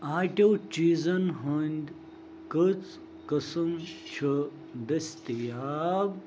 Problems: none marked